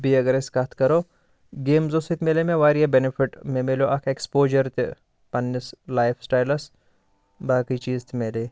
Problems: none marked